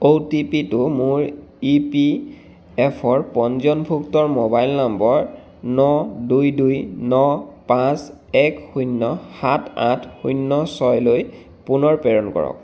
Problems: background sounds at intervals